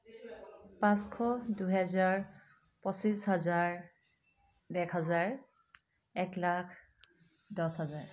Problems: background sounds at intervals, background conversations at intervals